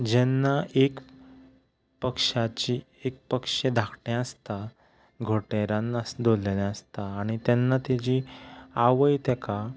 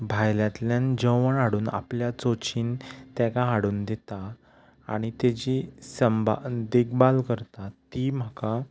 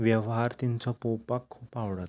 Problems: background sounds at intervals, background conversations at intervals